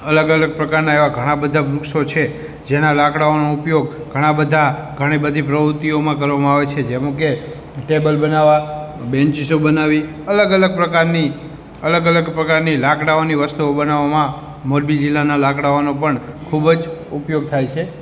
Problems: background conversations at intervals